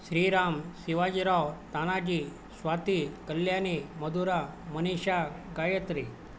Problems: none marked